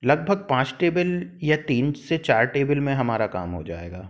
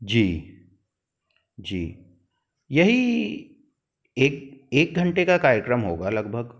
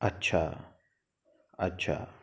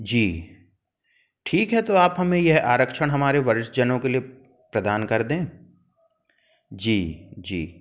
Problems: none marked